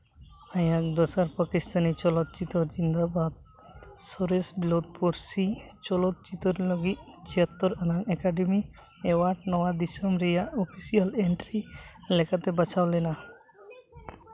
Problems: constant background noise, background conversations at intervals